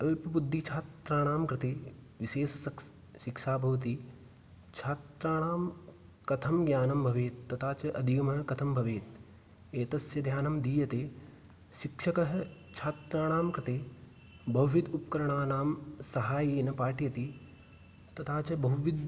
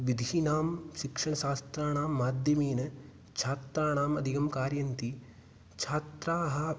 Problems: none marked